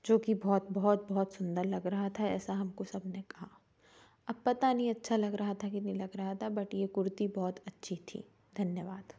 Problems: background sounds at intervals